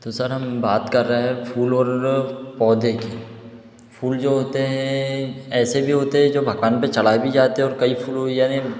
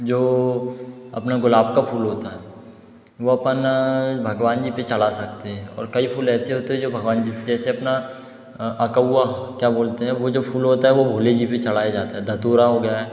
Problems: none marked